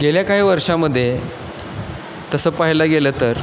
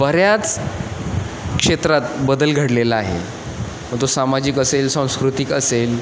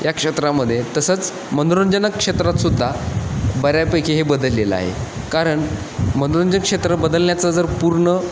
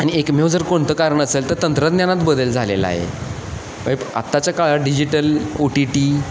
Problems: constant background noise, echo